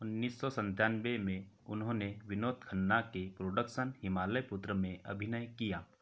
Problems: background sounds at intervals